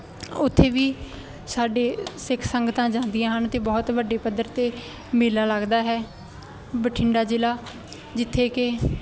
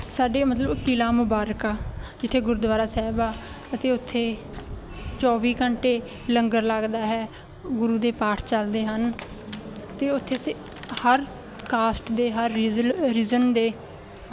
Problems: constant background noise